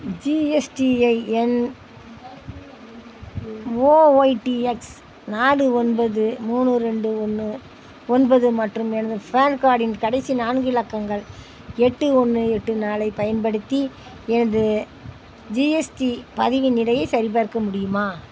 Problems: constant background noise